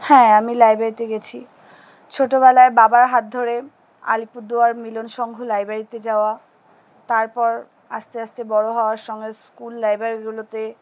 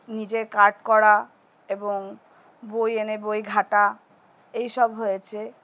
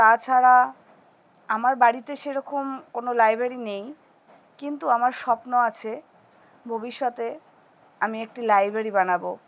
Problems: none marked